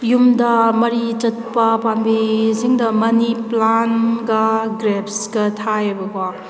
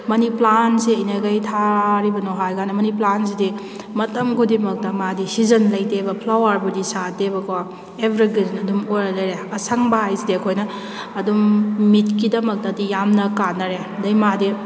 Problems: none marked